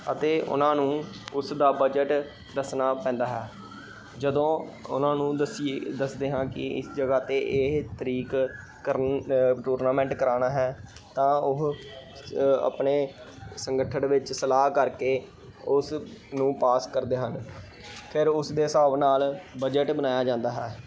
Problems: none marked